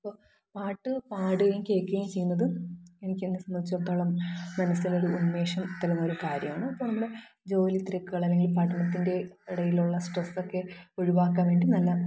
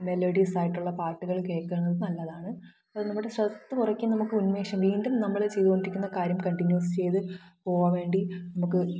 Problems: echo, low volume